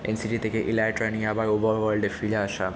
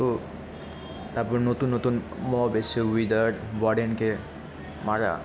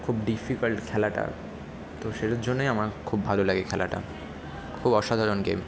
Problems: none marked